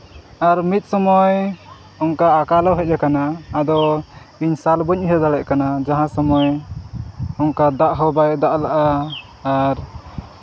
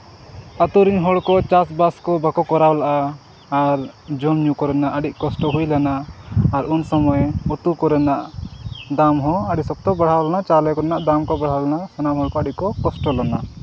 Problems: constant background noise